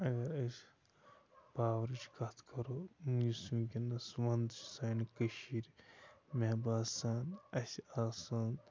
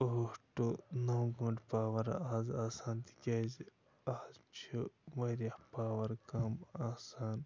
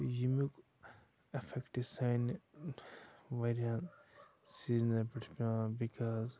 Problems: constant background noise